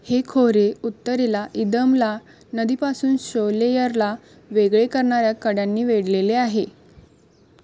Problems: constant background noise